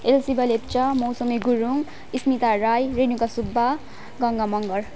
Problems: none marked